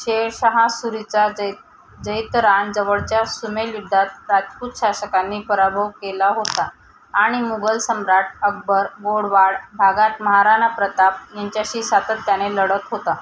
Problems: constant background noise